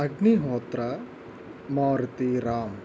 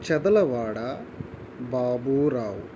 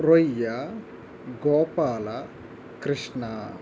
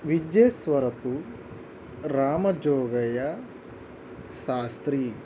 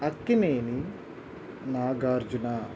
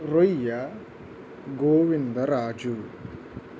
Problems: constant background noise